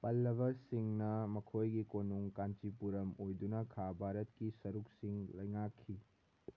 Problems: none marked